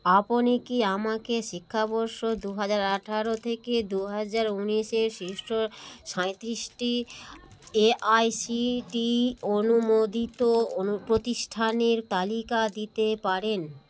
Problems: constant background noise